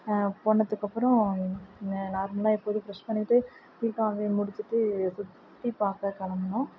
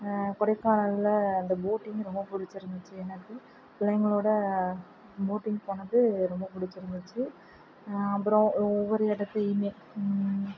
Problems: none marked